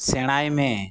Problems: none marked